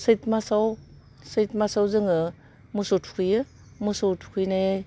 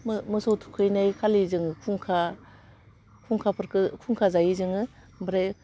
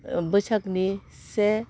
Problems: none marked